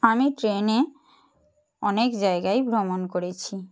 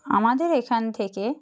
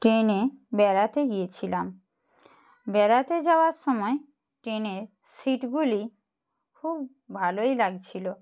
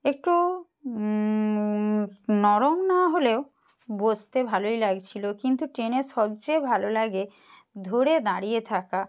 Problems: background sounds at intervals